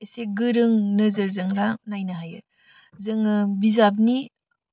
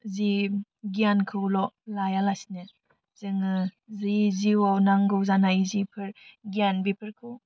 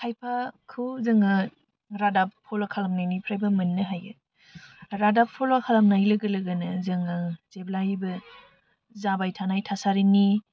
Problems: constant background noise